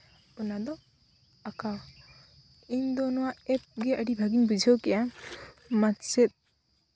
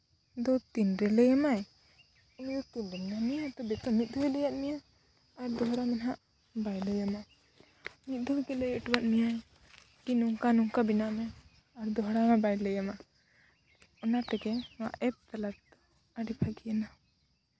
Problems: none marked